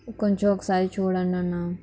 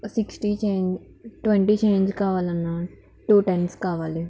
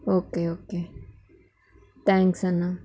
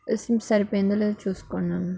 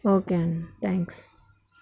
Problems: background sounds at intervals, background conversations at intervals